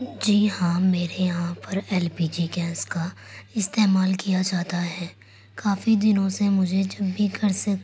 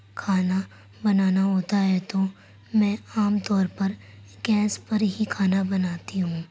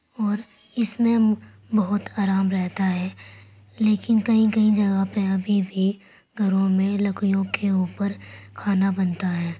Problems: none marked